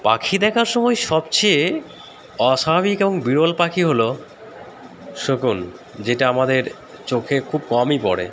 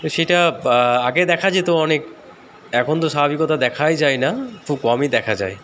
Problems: constant background noise, background conversations at intervals